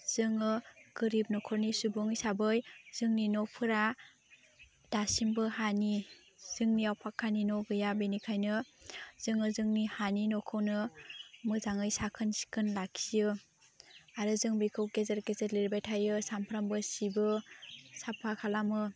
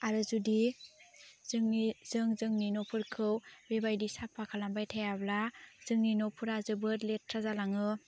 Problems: constant background noise